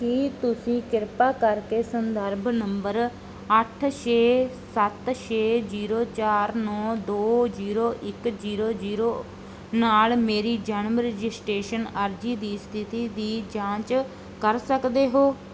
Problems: none marked